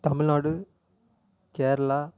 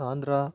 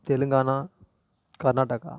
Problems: none marked